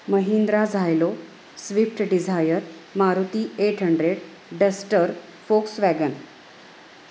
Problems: constant background noise